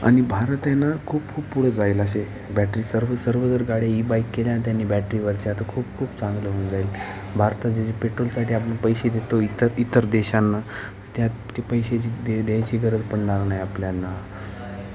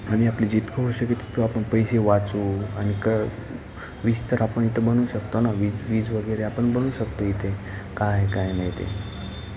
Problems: constant background noise, continuous background conversations